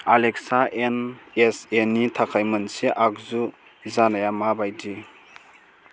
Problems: constant background noise